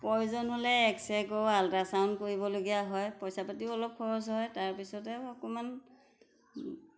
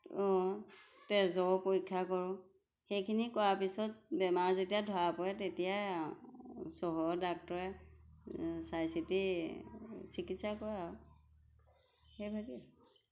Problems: background sounds at intervals